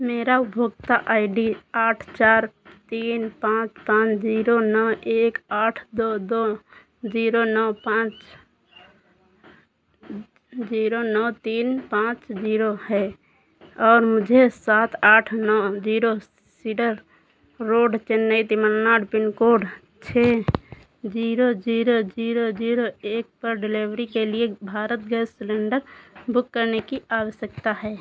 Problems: none marked